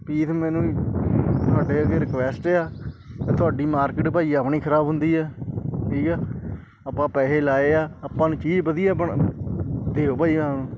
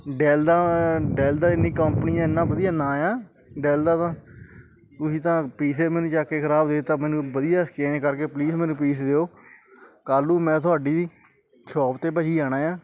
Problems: background conversations at intervals